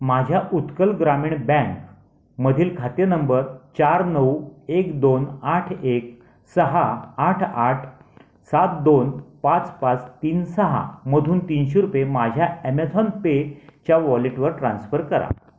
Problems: none marked